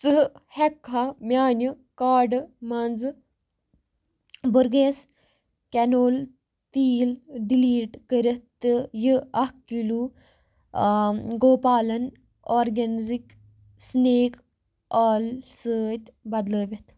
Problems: none marked